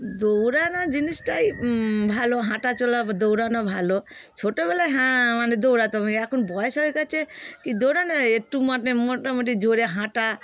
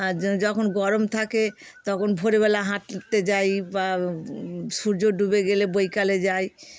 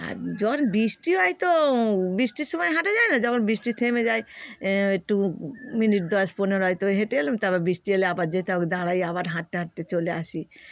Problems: constant background noise